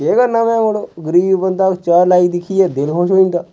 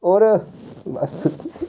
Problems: background sounds at intervals